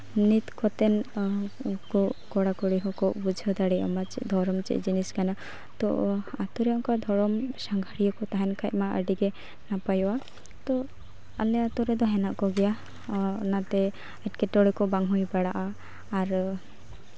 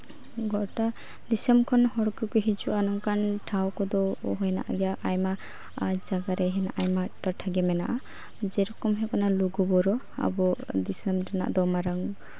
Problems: none marked